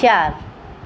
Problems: constant background noise